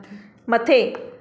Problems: background conversations at intervals, echo